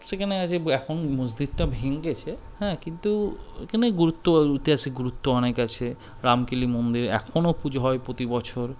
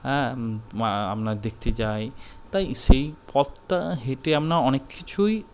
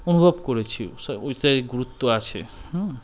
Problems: none marked